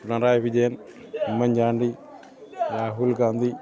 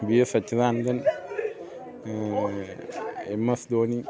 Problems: constant background noise